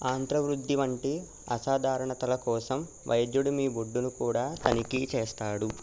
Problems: constant background noise